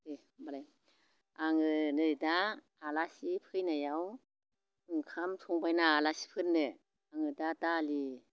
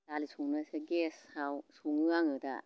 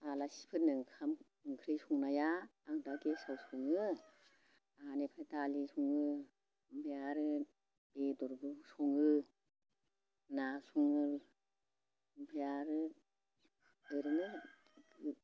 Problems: constant background noise